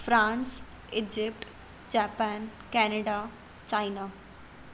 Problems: constant background noise